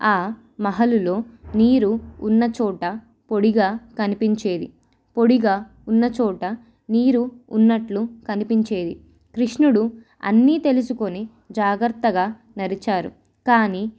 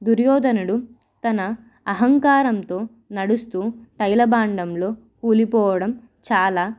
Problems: none marked